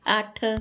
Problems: none marked